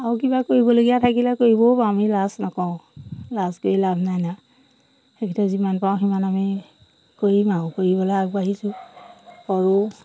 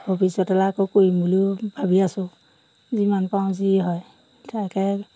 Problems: none marked